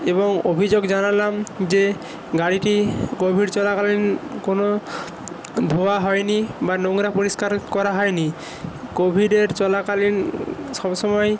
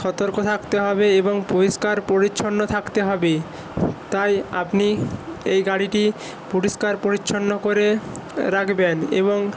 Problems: background sounds at intervals